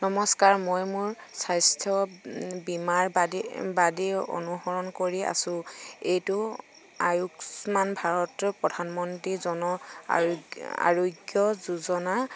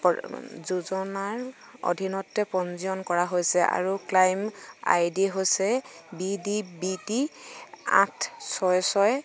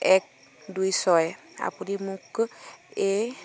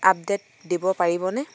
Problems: none marked